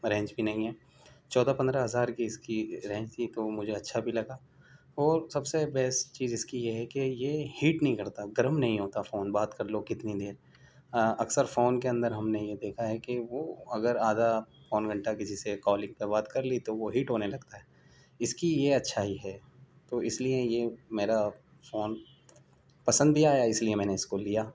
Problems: none marked